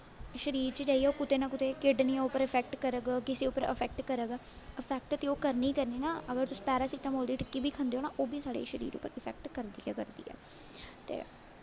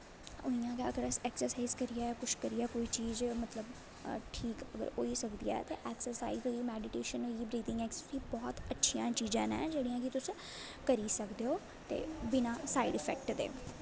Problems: constant background noise, low volume